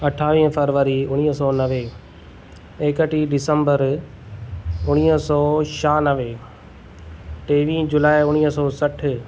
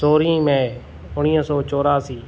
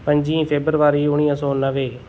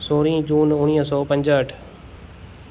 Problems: none marked